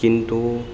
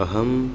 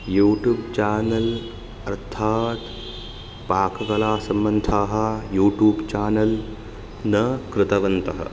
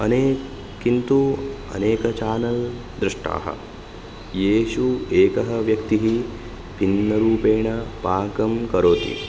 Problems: background sounds at intervals